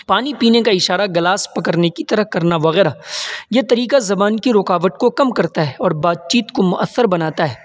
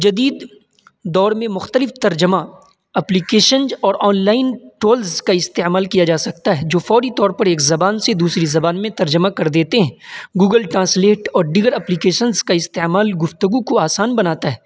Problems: constant background noise